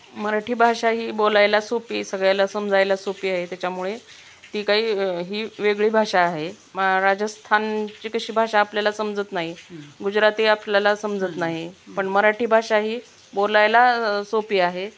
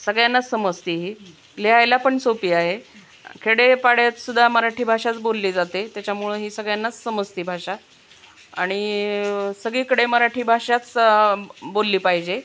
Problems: none marked